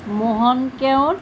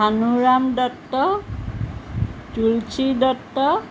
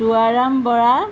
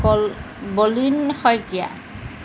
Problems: background sounds at intervals